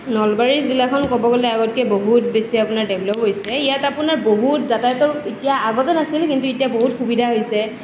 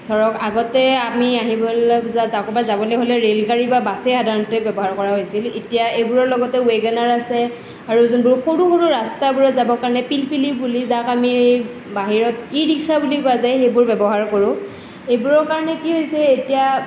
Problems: none marked